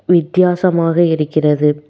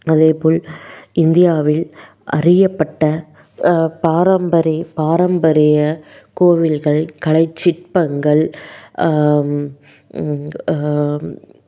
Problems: none marked